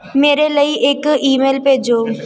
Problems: background sounds at intervals